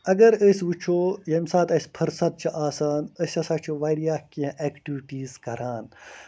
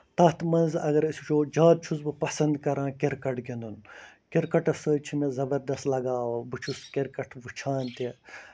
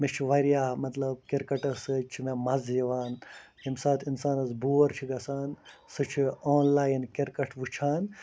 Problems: constant background noise